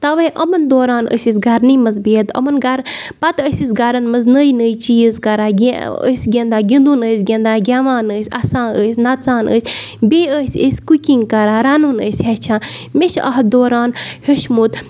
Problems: none marked